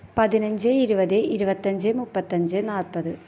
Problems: none marked